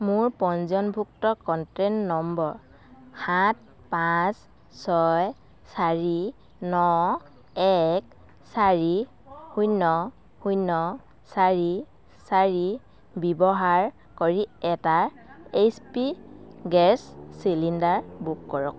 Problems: constant background noise